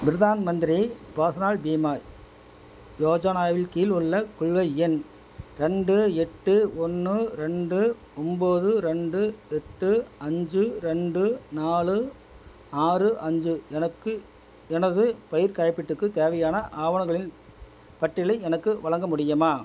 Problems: none marked